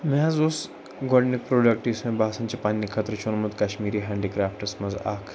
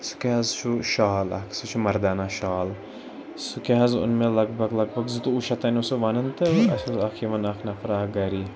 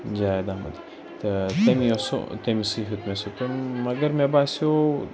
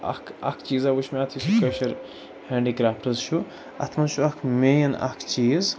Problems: background sounds at intervals, background conversations at intervals